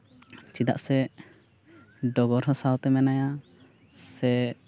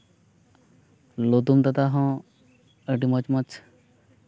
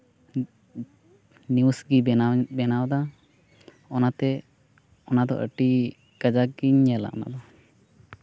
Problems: background sounds at intervals